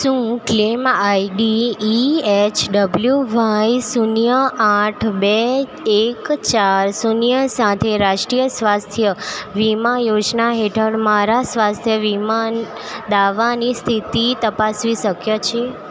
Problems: constant background noise